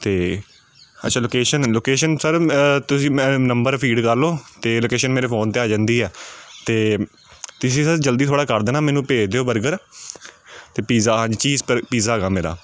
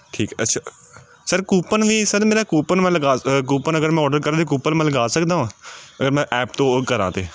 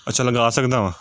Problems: none marked